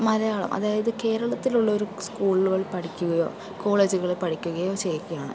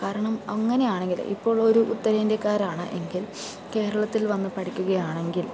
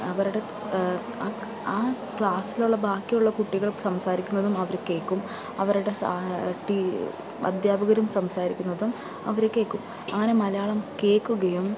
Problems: constant background noise, low volume